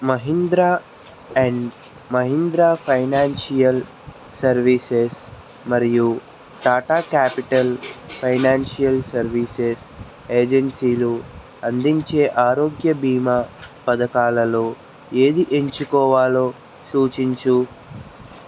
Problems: constant background noise